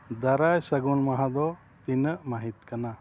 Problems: none marked